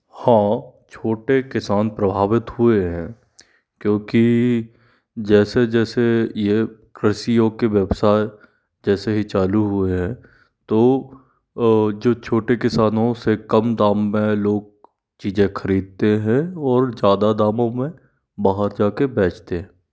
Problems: background sounds at intervals